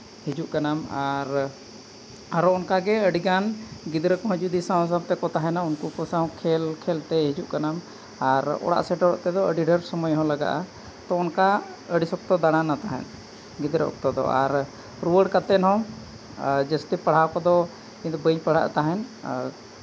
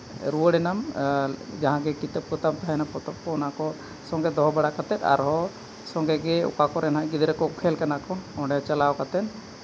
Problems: constant background noise